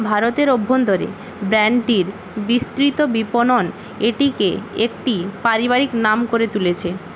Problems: constant background noise